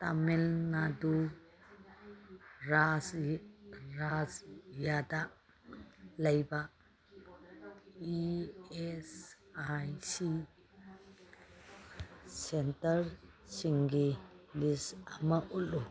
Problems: background conversations at intervals